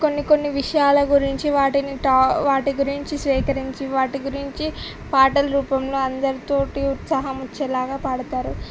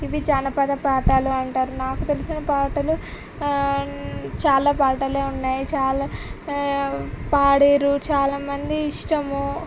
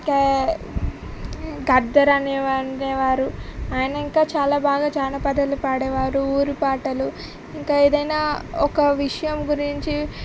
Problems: constant background noise